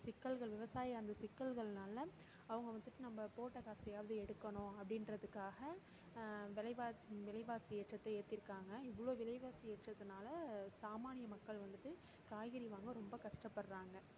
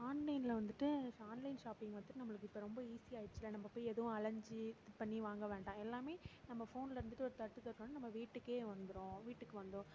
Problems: none marked